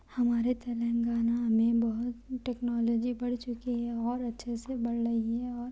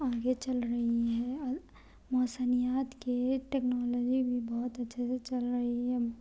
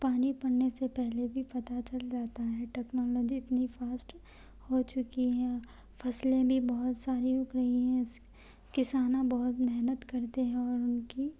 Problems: low volume